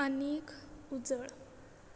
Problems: constant background noise